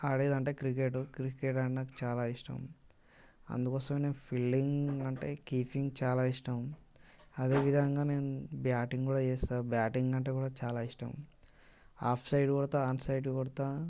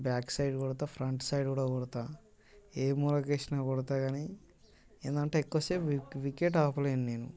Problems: constant background noise